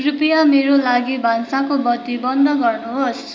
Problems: continuous background conversations